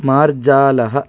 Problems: constant background noise